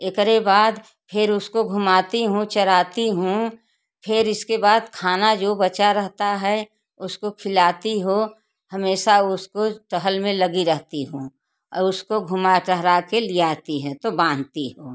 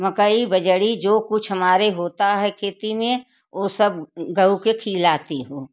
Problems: none marked